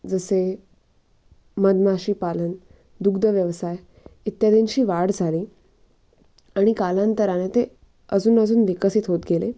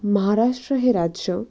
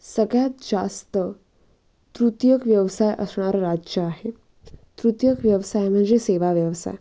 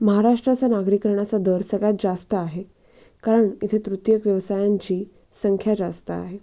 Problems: none marked